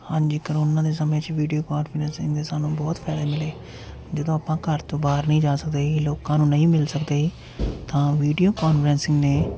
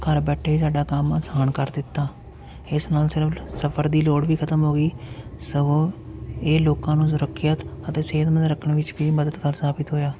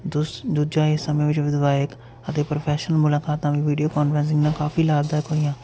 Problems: none marked